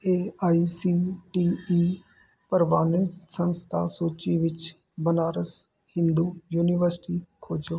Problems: none marked